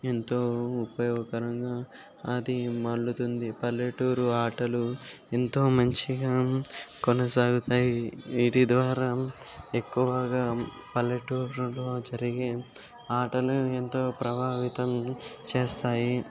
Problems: none marked